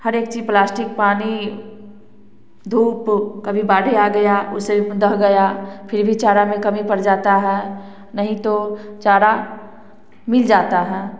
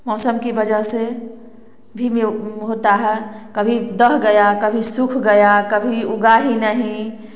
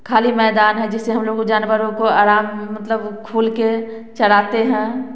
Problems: none marked